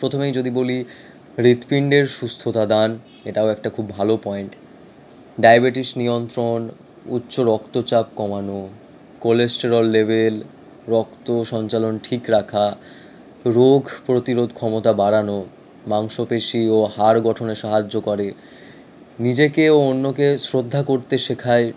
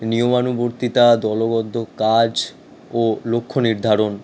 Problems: constant background noise